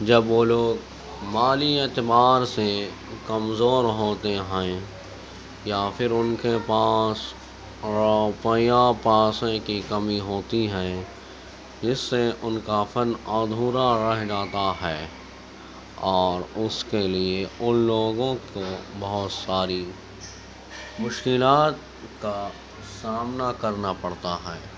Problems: constant background noise, low volume